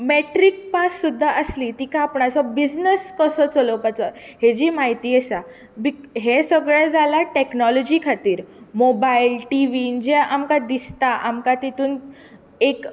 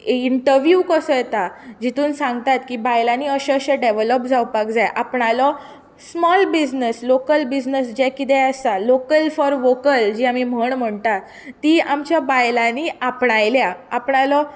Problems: none marked